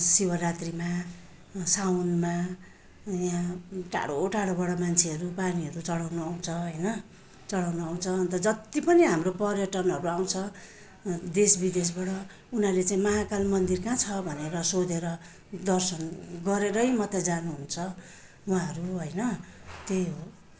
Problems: none marked